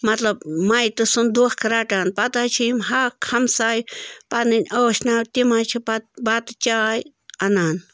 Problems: constant background noise